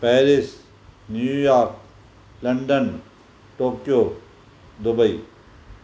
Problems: constant background noise